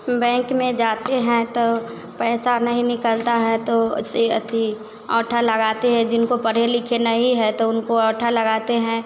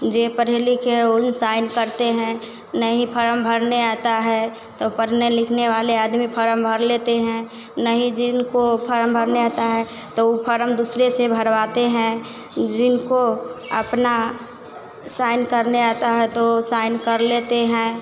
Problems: constant background noise